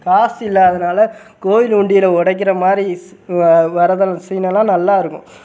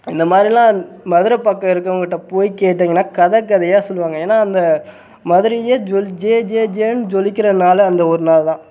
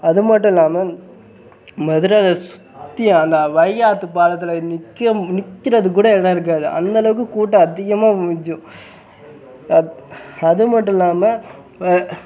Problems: background sounds at intervals